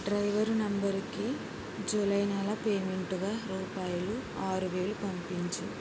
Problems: low volume